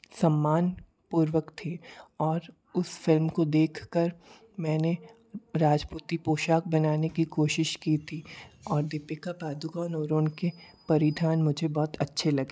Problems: constant background noise